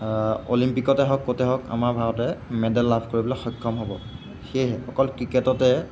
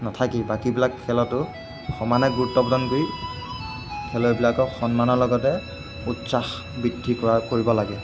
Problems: constant background noise